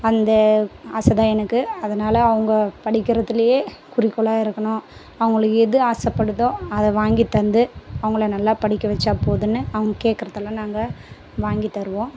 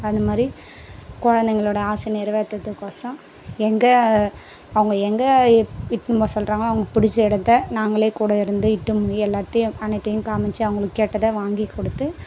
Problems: none marked